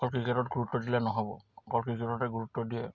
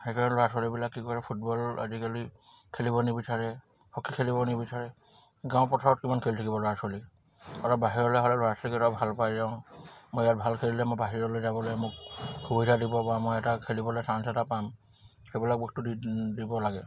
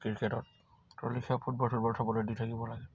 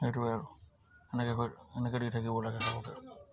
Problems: none marked